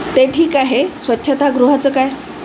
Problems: constant background noise